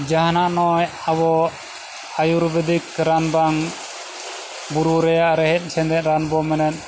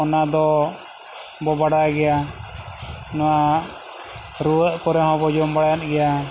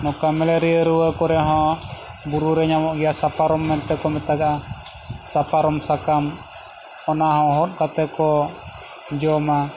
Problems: none marked